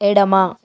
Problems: none marked